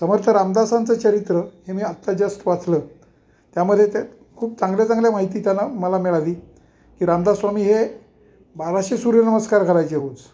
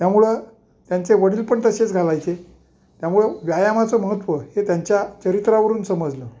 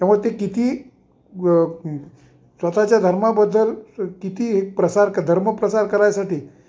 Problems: background sounds at intervals